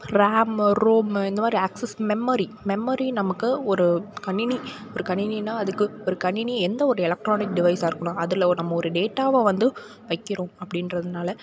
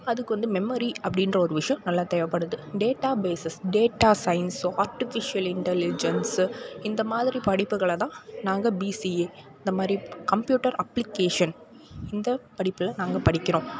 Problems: background conversations at intervals